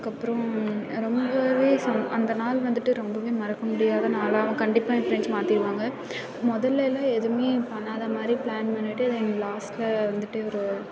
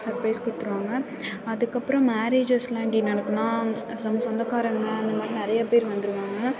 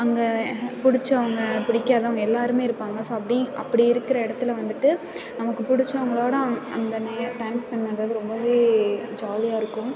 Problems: background conversations at intervals